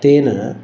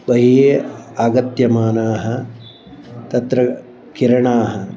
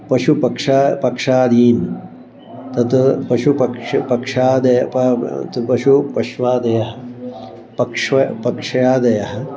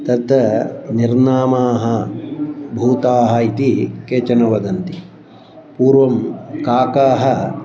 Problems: background sounds at intervals